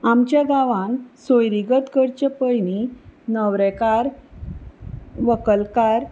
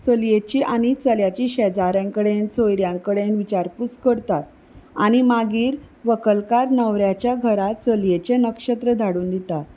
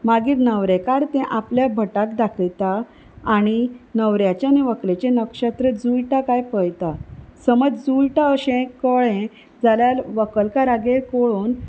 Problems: none marked